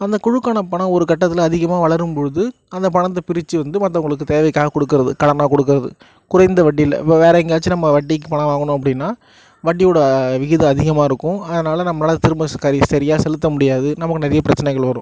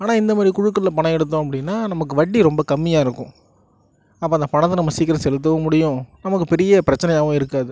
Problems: none marked